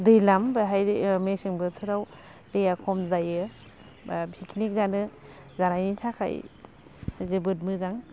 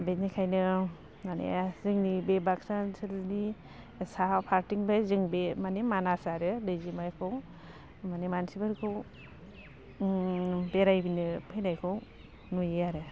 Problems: constant background noise